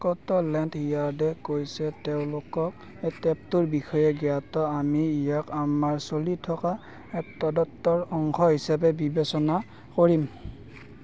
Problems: background conversations at intervals